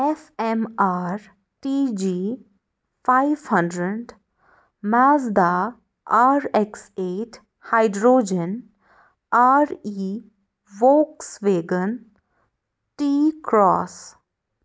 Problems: none marked